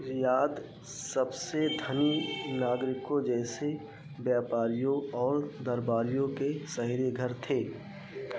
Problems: background sounds at intervals